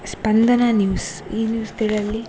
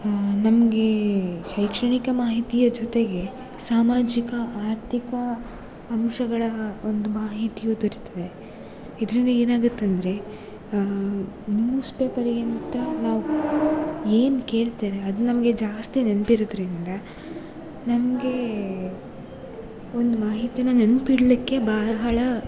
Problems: constant background noise